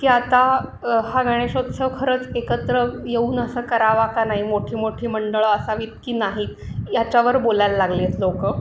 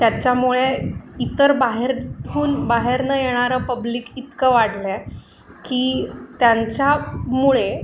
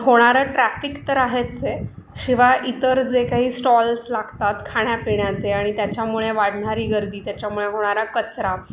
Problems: constant background noise, background conversations at intervals